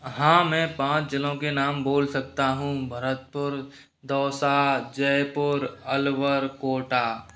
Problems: none marked